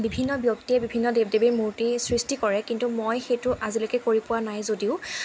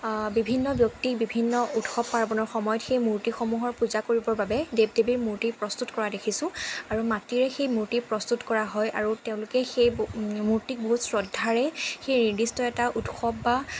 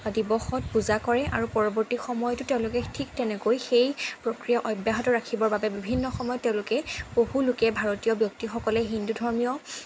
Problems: none marked